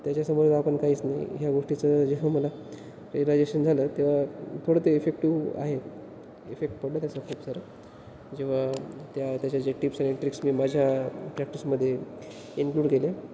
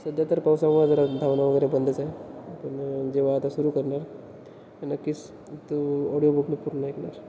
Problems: constant background noise